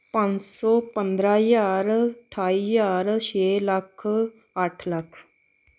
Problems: background sounds at intervals